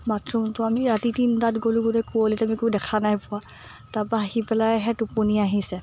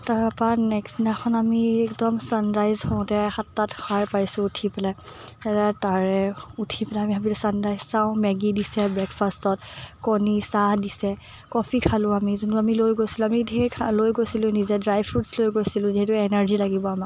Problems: none marked